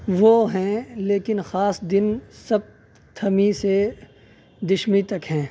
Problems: none marked